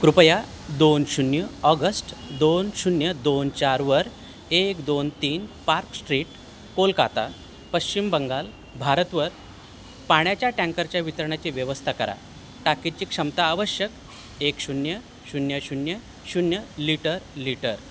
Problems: none marked